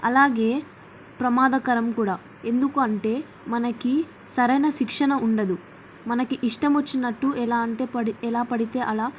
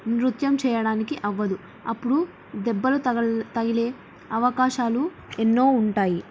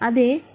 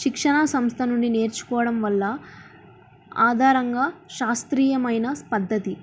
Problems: none marked